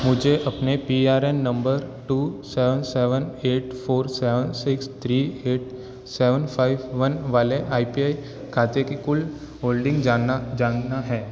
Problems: constant background noise